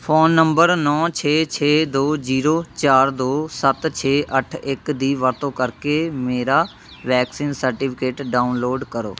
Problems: constant background noise